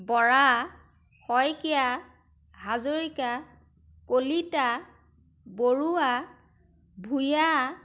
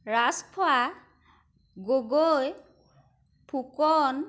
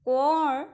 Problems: none marked